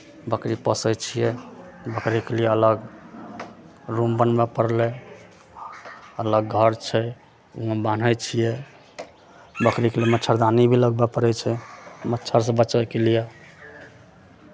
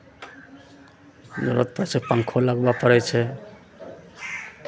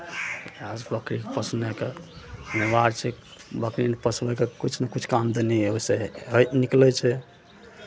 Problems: none marked